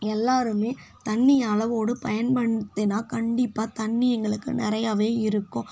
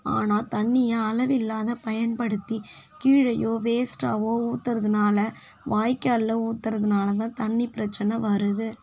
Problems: none marked